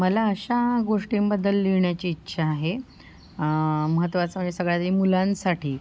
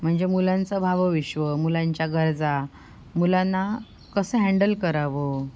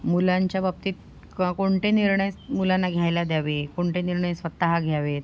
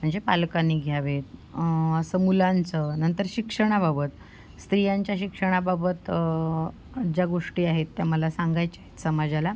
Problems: none marked